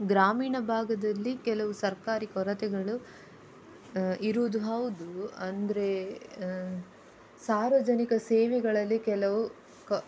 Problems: none marked